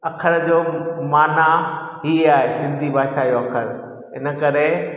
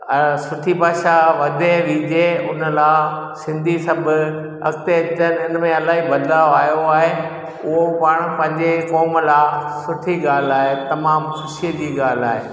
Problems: background sounds at intervals, echo